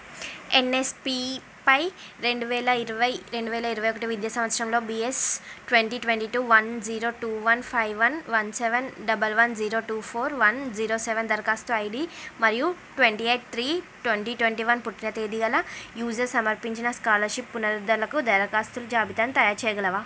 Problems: none marked